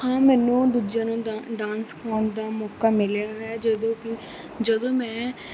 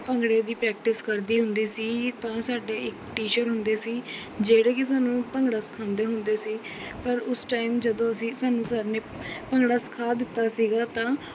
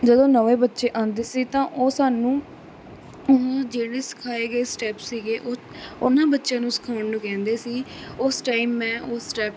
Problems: constant background noise